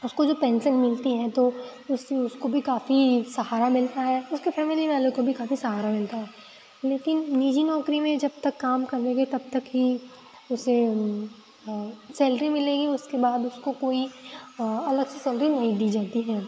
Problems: constant background noise